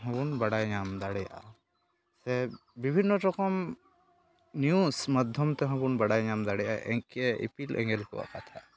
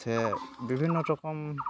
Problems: constant background noise